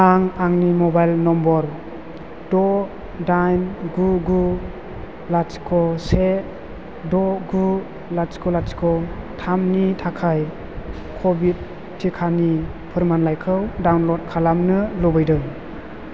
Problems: constant background noise